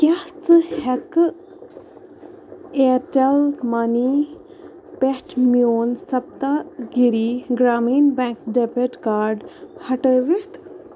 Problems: constant background noise